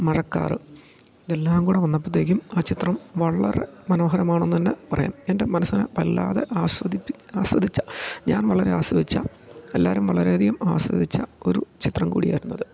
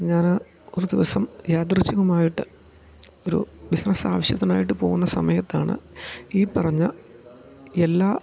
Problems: low volume